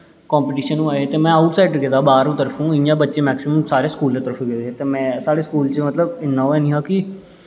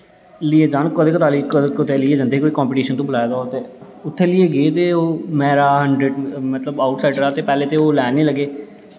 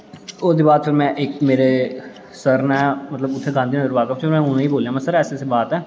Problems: constant background noise, low volume